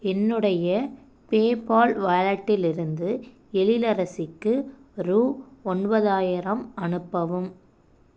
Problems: none marked